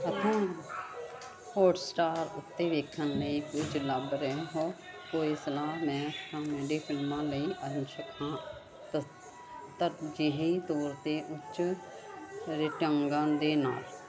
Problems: constant background noise